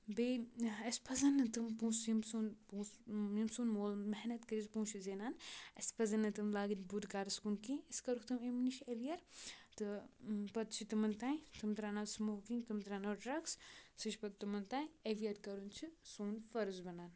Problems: background sounds at intervals